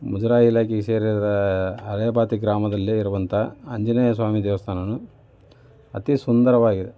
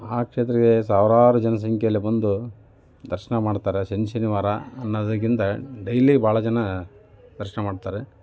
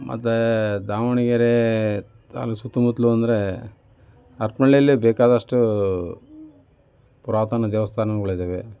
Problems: none marked